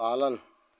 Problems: constant background noise